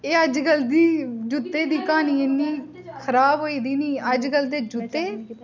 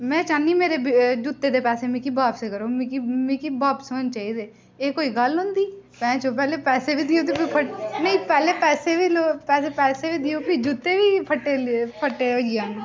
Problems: constant background noise, background conversations at intervals